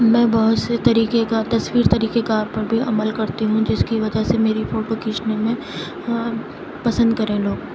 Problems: constant background noise, low volume